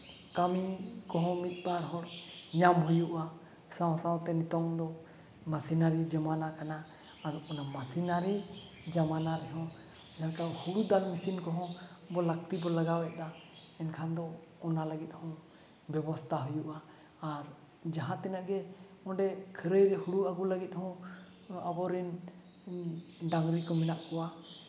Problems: background sounds at intervals